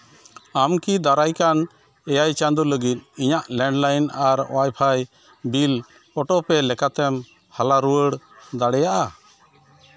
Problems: background sounds at intervals, continuous background conversations